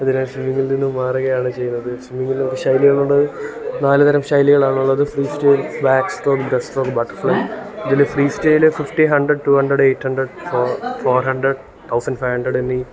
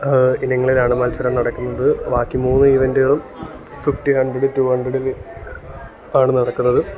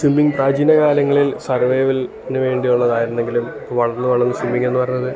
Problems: constant background noise, background conversations at intervals